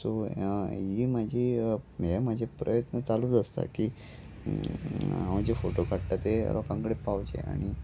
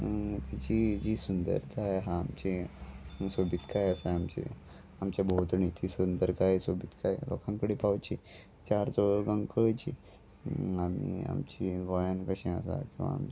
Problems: none marked